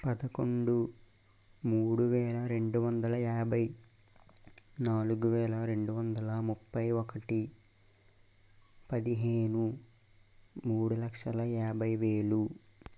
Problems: constant background noise, low volume